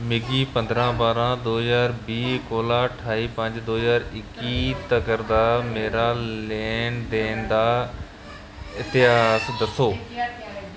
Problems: none marked